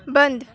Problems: none marked